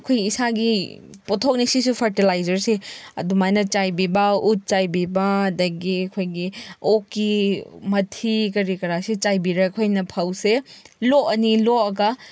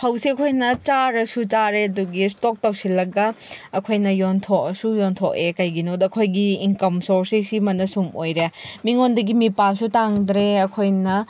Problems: background sounds at intervals